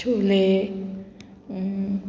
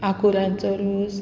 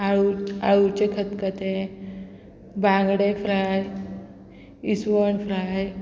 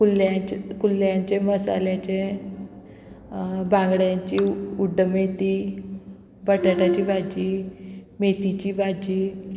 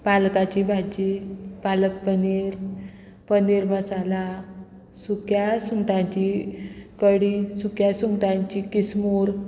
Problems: continuous background conversations